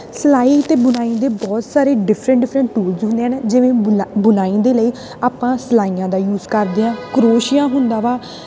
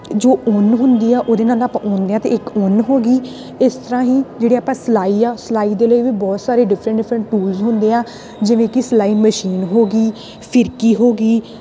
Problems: constant background noise